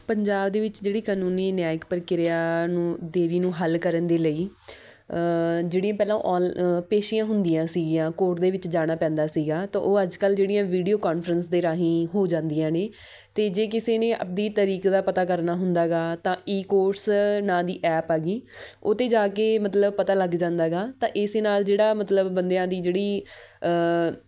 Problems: none marked